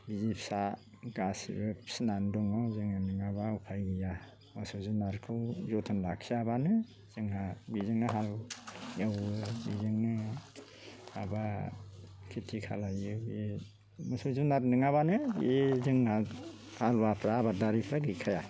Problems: constant background noise